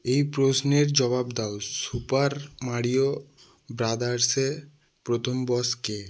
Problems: none marked